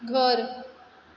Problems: background sounds at intervals